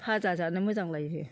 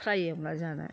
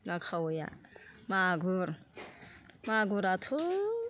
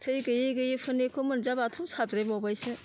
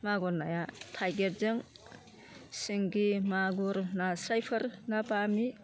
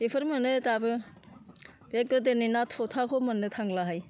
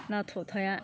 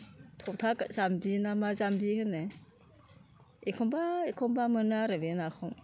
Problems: low volume